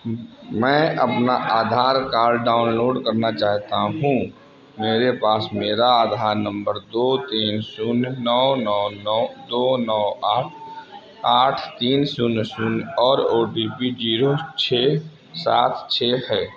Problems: constant background noise